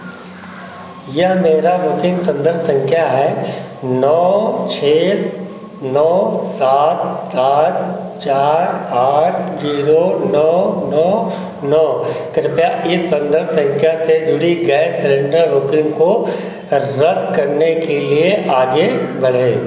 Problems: none marked